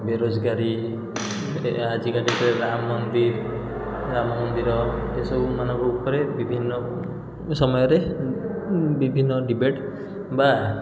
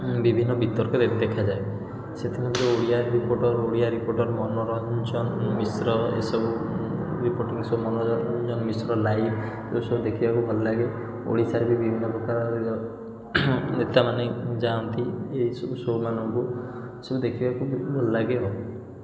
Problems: echo